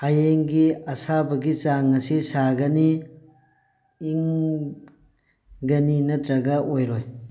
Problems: background sounds at intervals